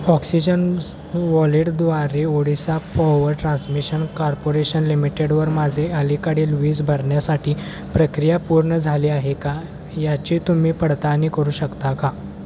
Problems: constant background noise